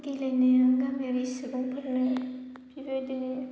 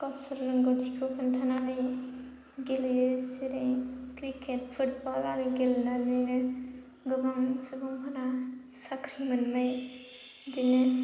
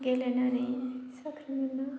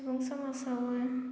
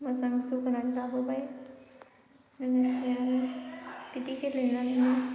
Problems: low volume